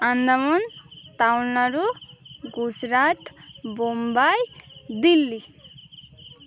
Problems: constant background noise, continuous background conversations